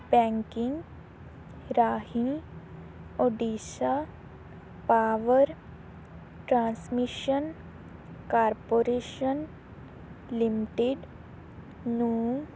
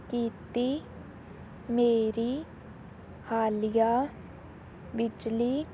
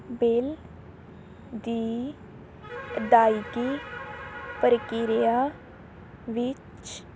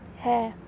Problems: background sounds at intervals